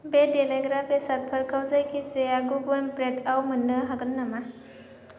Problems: constant background noise